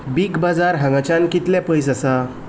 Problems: background sounds at intervals